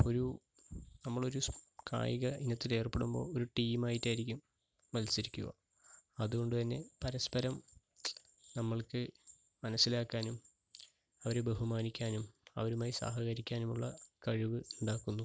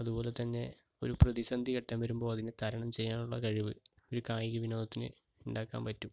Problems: background sounds at intervals, low volume